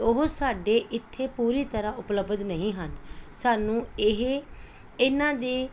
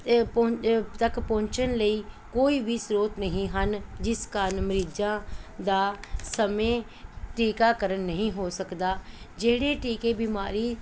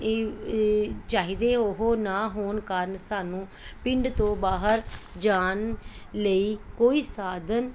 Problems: none marked